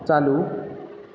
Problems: none marked